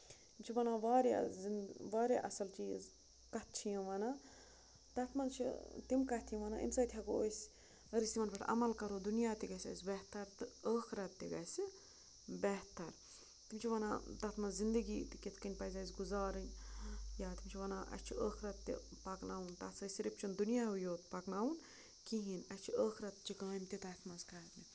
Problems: constant background noise, low volume